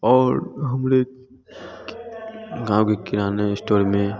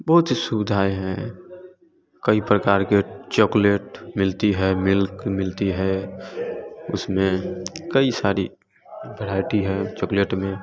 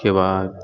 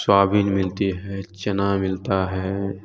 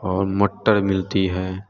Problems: constant background noise, continuous background conversations